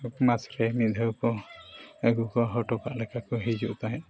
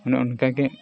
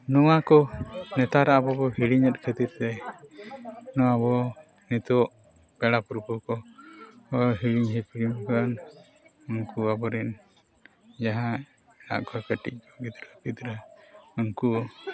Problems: constant background noise, continuous background conversations